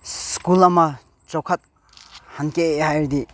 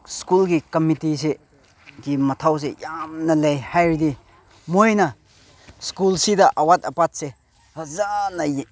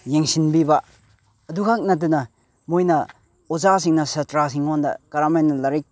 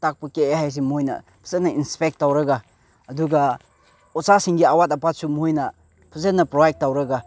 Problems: none marked